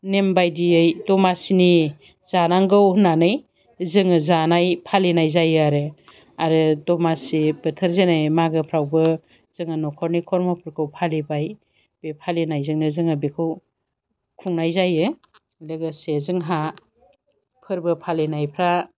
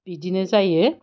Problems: none marked